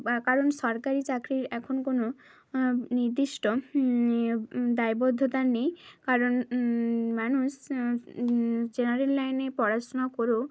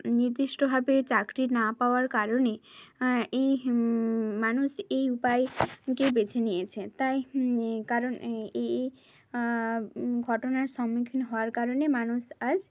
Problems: none marked